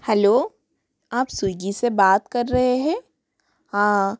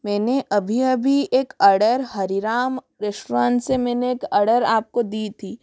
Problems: none marked